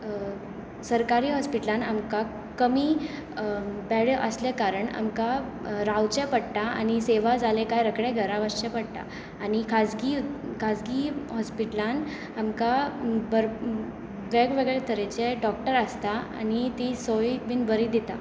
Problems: constant background noise